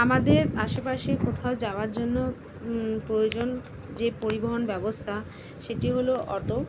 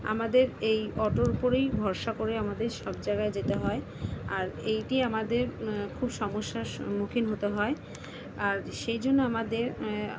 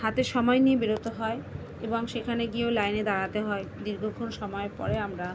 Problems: constant background noise